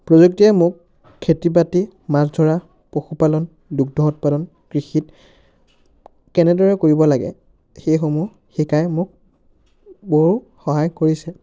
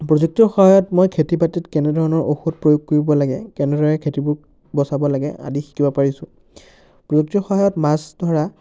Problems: constant background noise, background conversations at intervals